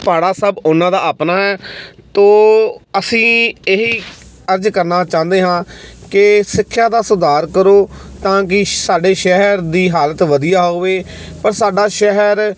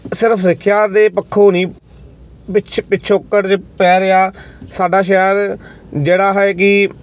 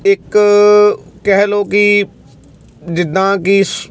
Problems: constant background noise